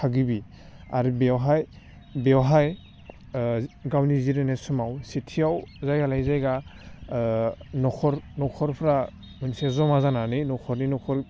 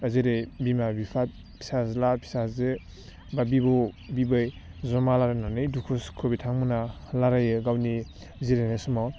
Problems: low volume